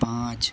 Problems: constant background noise